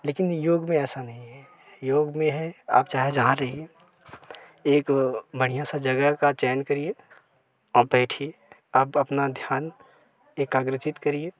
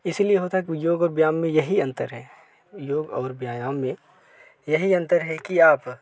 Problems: none marked